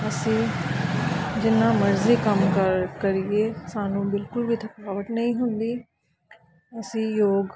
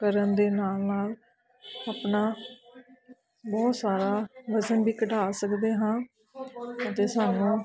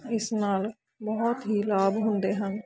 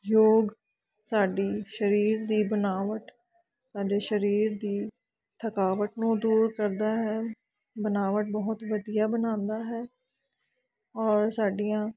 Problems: continuous background conversations